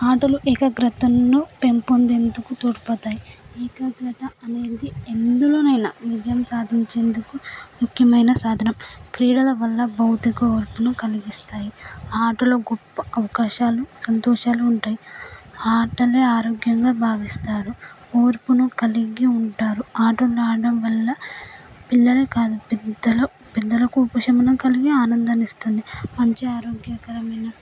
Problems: background sounds at intervals